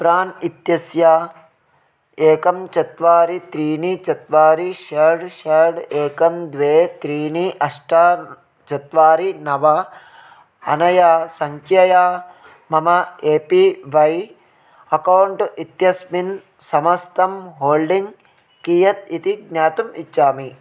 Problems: constant background noise